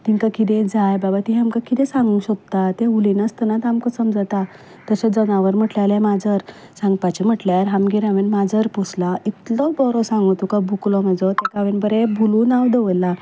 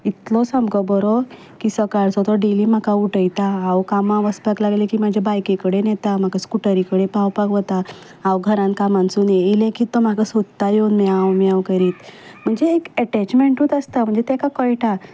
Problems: none marked